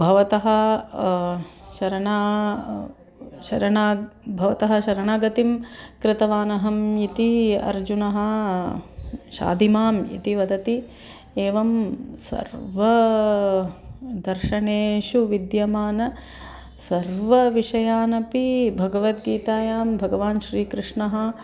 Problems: background sounds at intervals